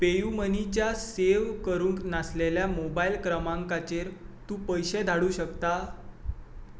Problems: none marked